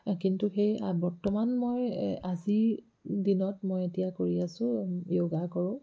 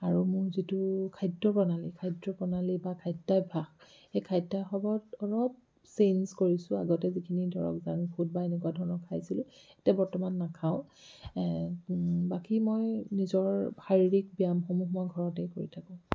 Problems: low volume